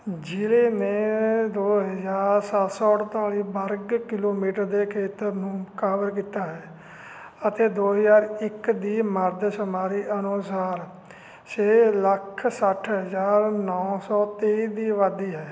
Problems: constant background noise